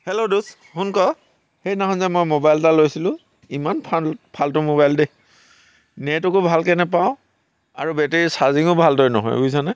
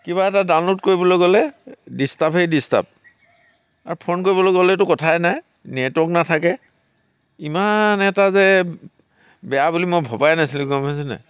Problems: none marked